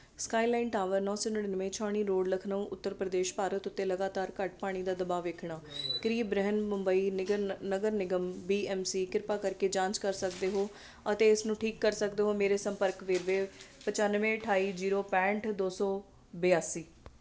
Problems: background sounds at intervals, background conversations at intervals